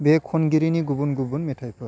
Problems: constant background noise